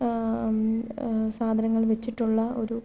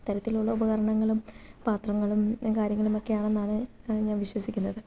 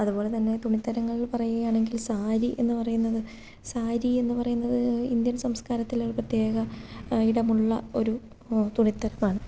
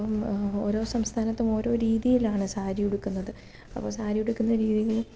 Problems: low volume